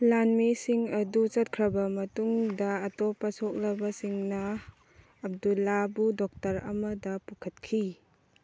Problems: none marked